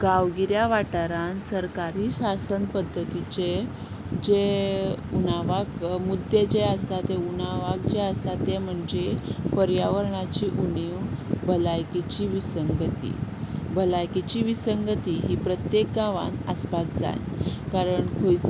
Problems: constant background noise